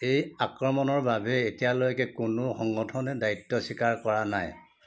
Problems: background conversations at intervals